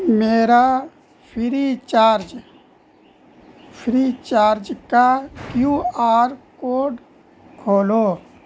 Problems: constant background noise